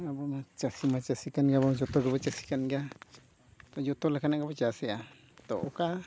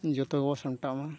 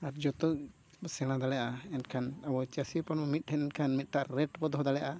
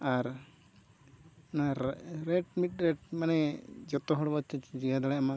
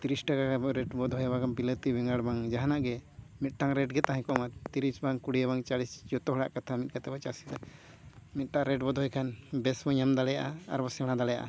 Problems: none marked